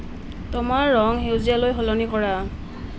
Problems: none marked